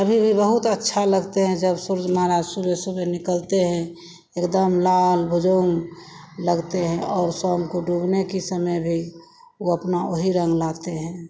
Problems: background sounds at intervals